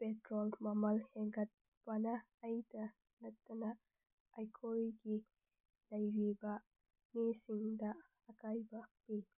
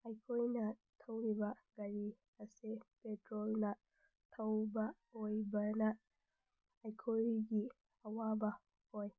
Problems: low volume